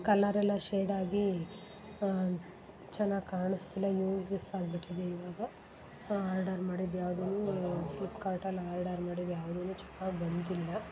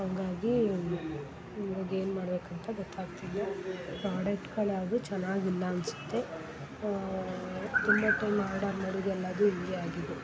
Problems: background sounds at intervals